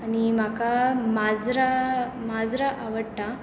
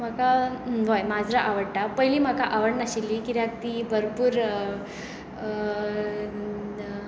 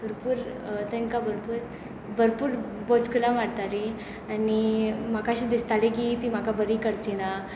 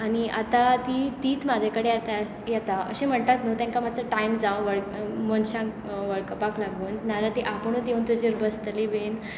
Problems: constant background noise